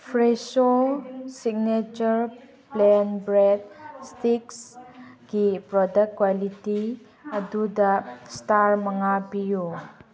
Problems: background sounds at intervals, background conversations at intervals